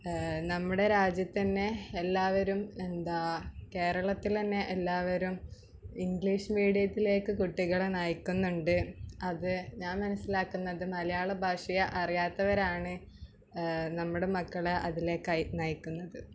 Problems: background sounds at intervals